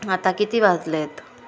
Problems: none marked